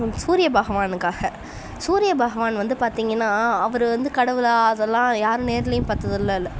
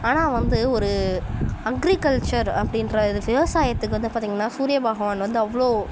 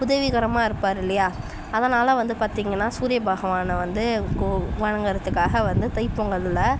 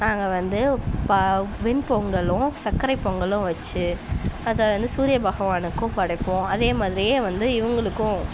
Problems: none marked